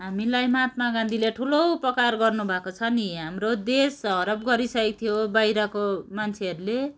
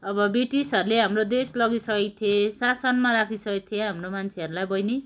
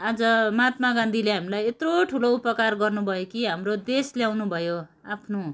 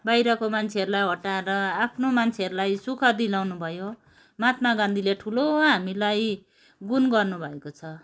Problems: background sounds at intervals